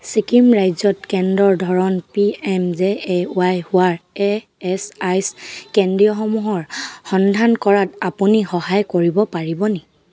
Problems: constant background noise